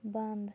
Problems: low volume